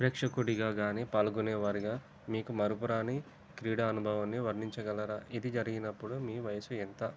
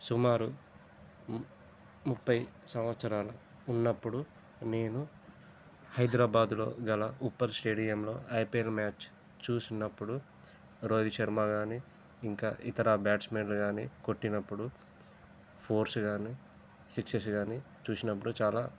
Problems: constant background noise, low volume